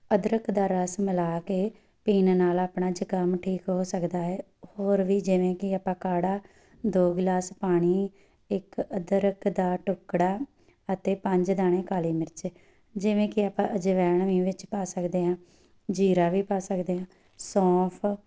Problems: none marked